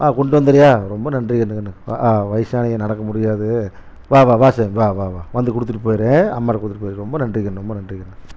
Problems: none marked